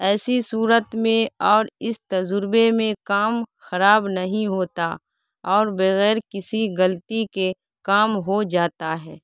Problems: background sounds at intervals